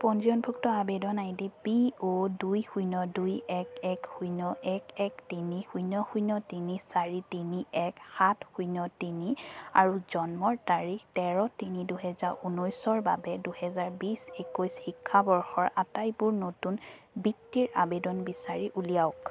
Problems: constant background noise